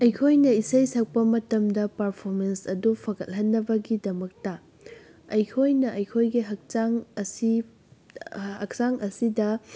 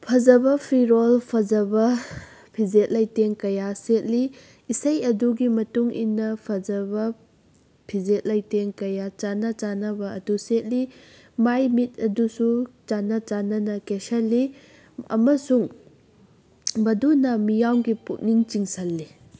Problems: none marked